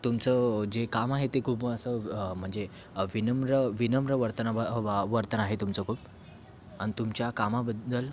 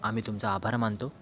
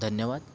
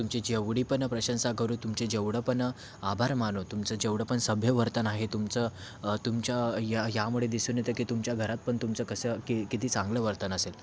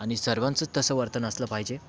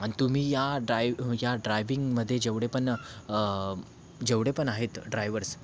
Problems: constant background noise, background conversations at intervals